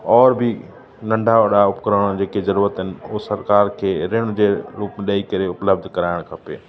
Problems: constant background noise, echo